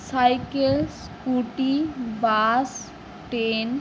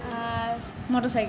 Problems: continuous background conversations